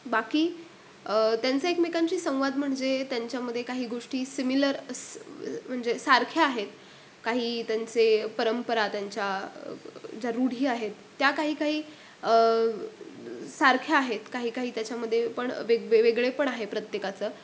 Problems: background sounds at intervals